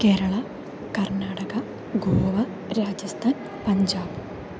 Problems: constant background noise, background conversations at intervals, low volume